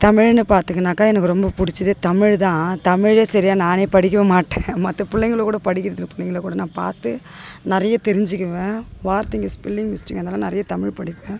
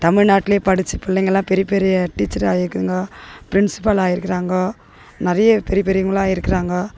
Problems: background sounds at intervals